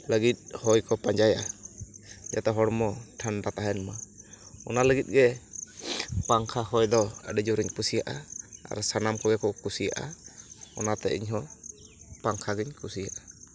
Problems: constant background noise